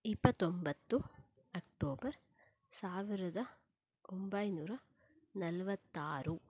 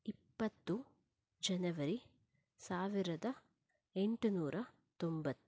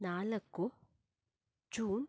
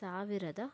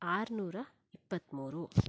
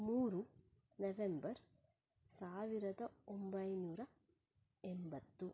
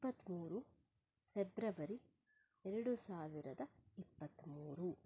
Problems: low volume